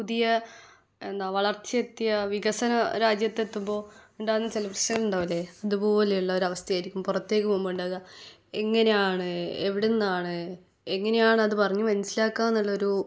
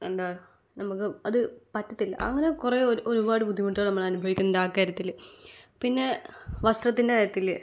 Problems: none marked